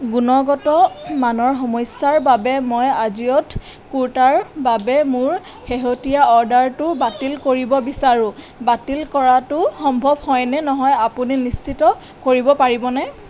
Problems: none marked